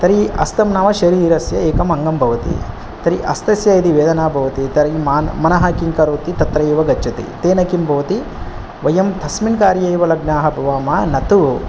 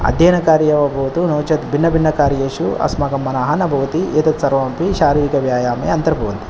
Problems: none marked